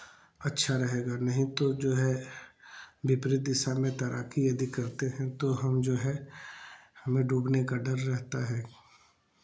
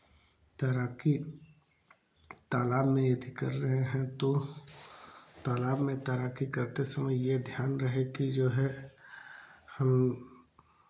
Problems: constant background noise